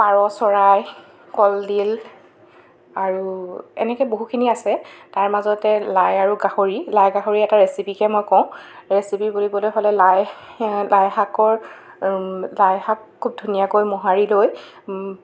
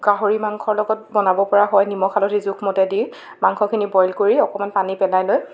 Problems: background sounds at intervals